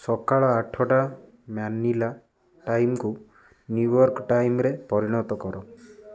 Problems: constant background noise, continuous background conversations